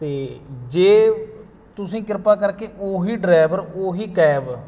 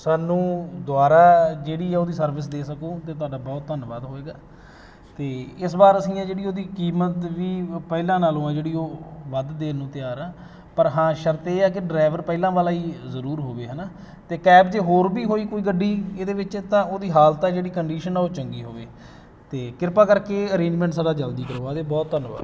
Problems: none marked